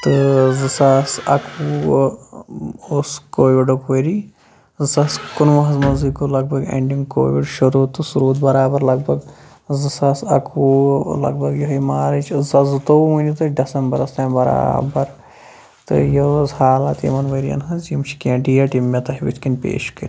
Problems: background sounds at intervals